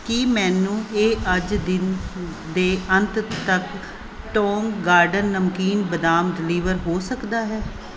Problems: background sounds at intervals